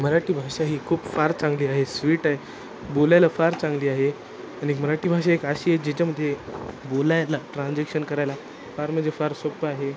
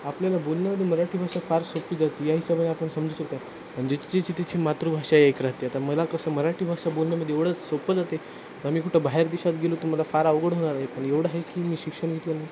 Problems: constant background noise